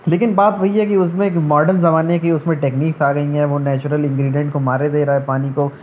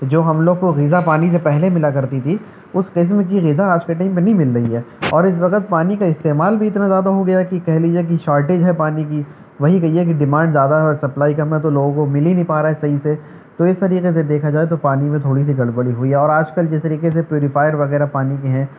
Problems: background sounds at intervals